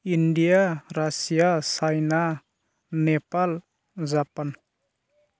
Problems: constant background noise